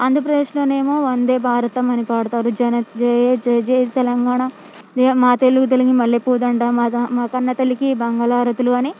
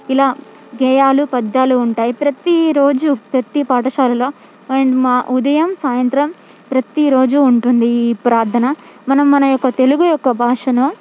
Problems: background sounds at intervals, background conversations at intervals